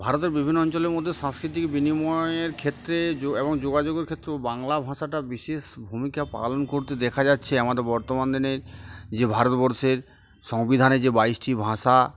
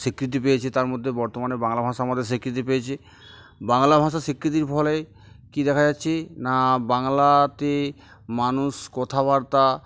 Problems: none marked